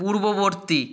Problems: none marked